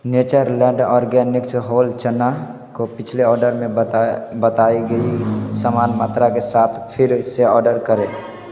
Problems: background sounds at intervals, background conversations at intervals